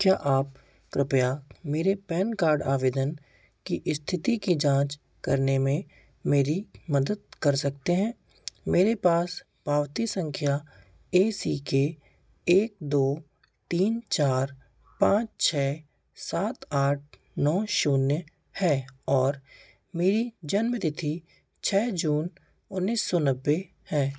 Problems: constant background noise